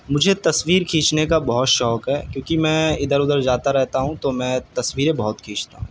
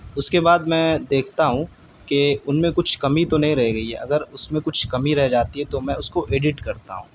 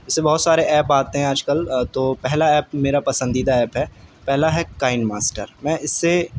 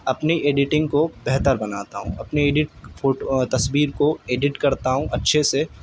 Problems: none marked